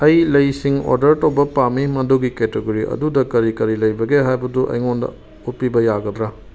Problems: background sounds at intervals